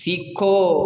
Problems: constant background noise